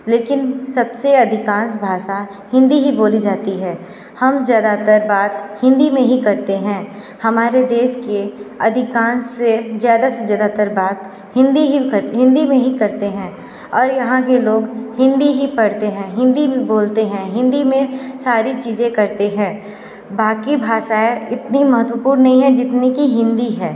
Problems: none marked